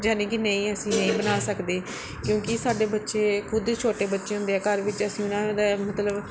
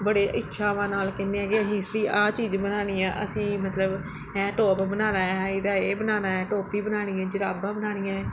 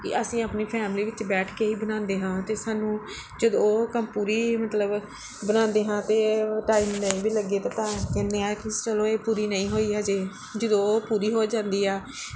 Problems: background sounds at intervals